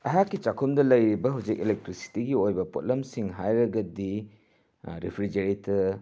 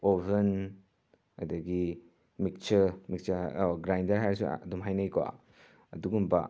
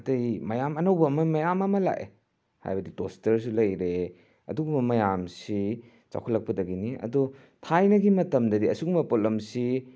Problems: none marked